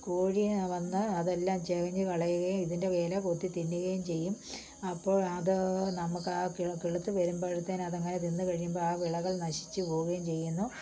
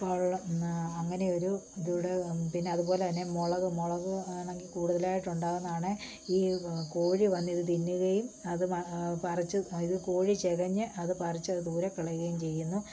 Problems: low volume